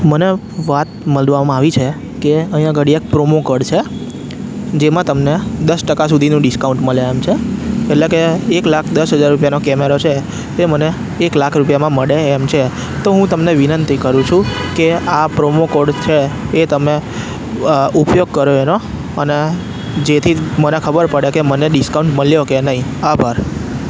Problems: constant background noise